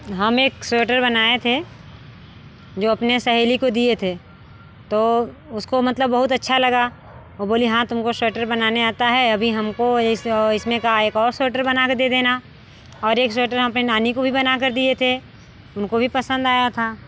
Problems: constant background noise